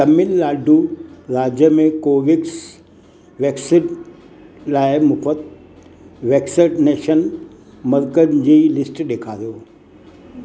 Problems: constant background noise, echo